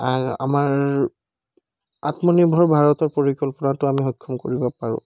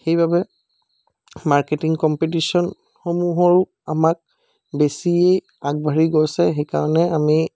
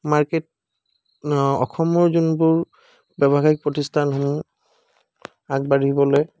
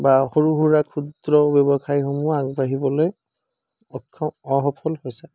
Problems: background sounds at intervals